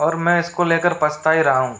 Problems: constant background noise